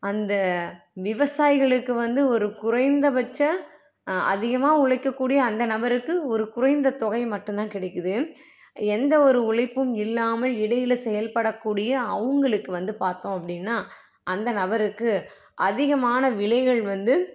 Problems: none marked